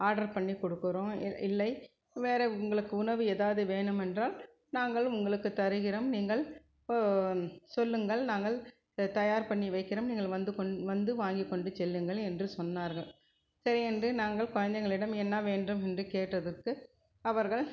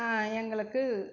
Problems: low volume